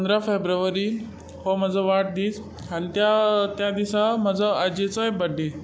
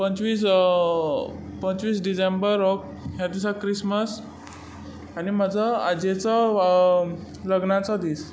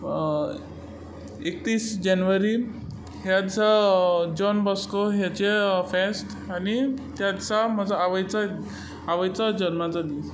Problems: constant background noise